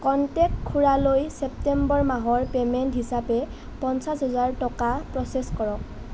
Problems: none marked